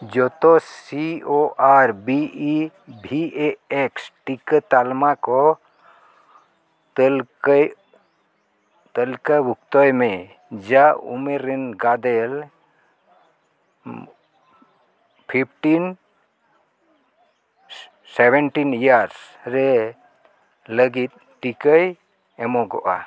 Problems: none marked